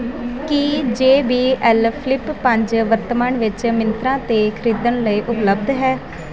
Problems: none marked